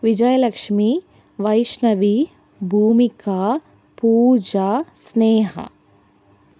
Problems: none marked